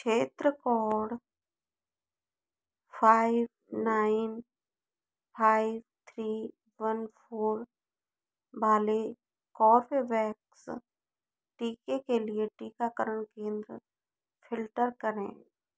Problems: none marked